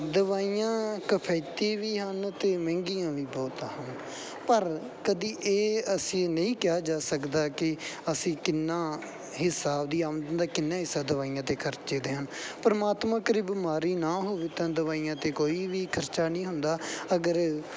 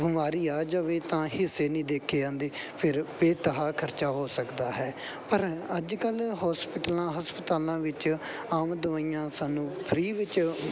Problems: background sounds at intervals